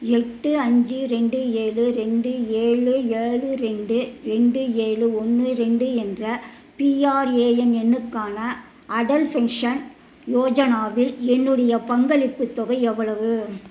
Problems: none marked